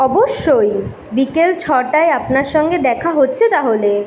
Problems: none marked